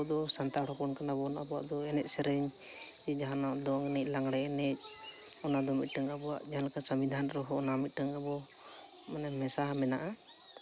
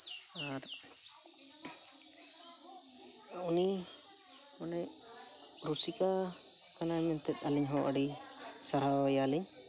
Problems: none marked